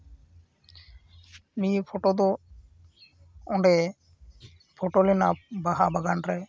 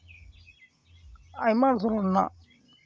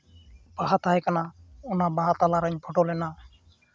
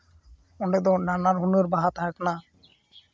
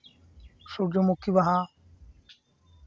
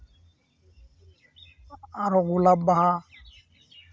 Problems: constant background noise